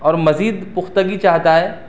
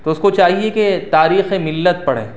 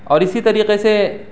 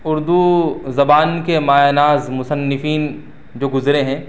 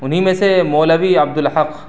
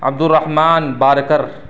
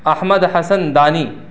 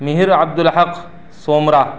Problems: none marked